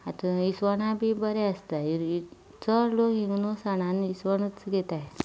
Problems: background sounds at intervals